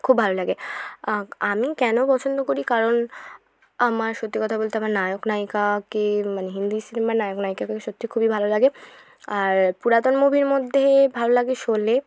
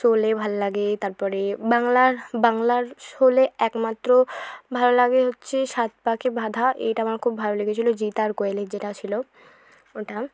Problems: background sounds at intervals